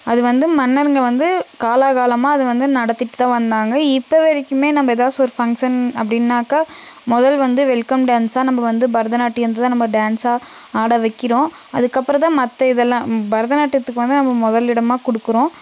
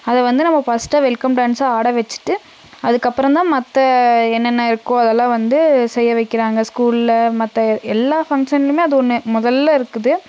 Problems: constant background noise